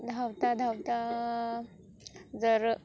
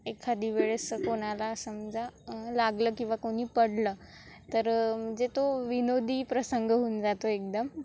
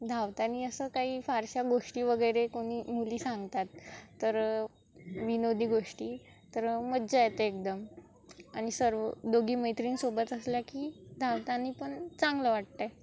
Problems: constant background noise, background conversations at intervals